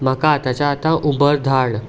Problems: constant background noise